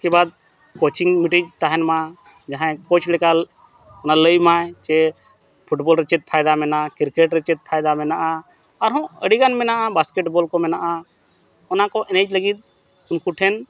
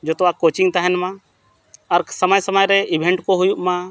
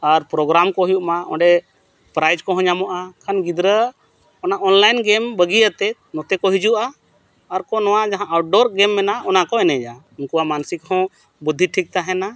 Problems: background sounds at intervals